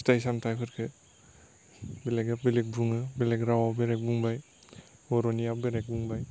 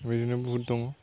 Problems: constant background noise